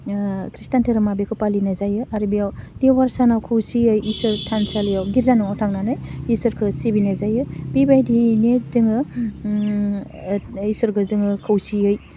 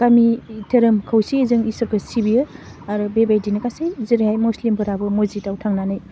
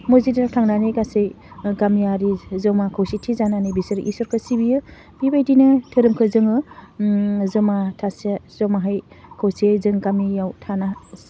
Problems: none marked